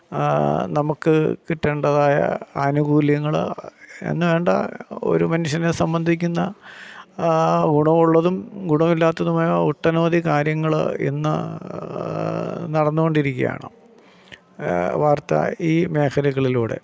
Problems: none marked